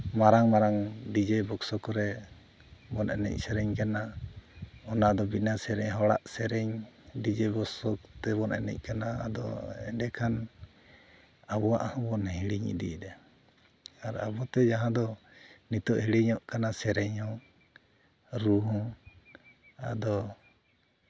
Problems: none marked